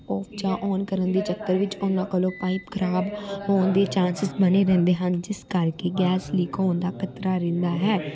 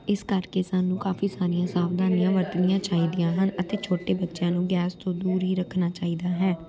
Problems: continuous background conversations